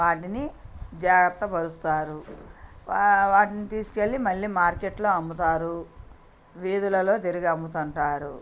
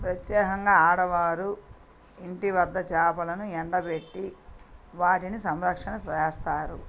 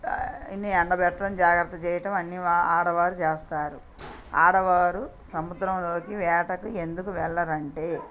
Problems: background conversations at intervals